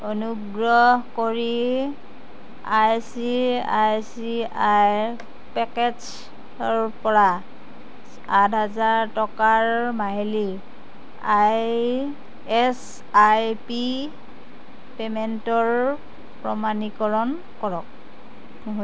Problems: constant background noise